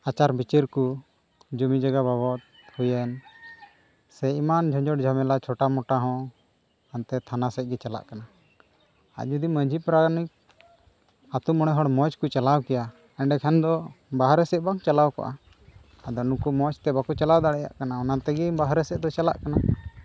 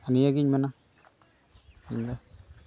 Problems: none marked